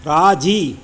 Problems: constant background noise, echo